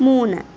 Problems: none marked